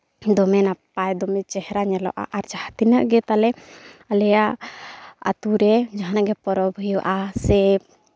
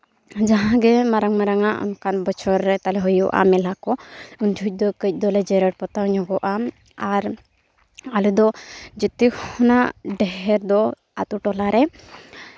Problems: none marked